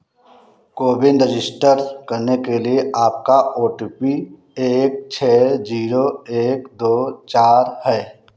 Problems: none marked